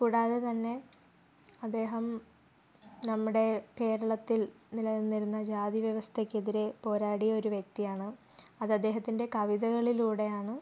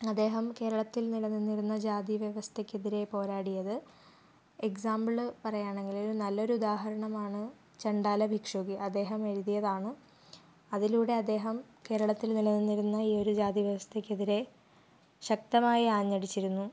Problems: none marked